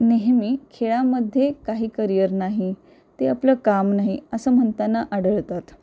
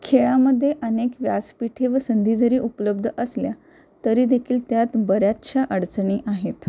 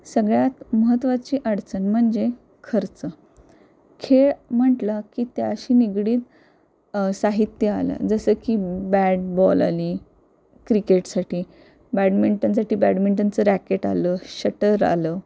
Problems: none marked